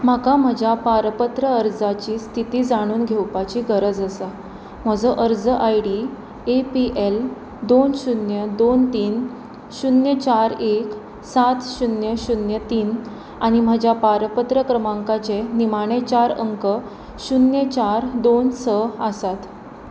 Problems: constant background noise